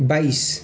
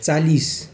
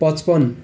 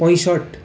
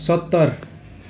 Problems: continuous background conversations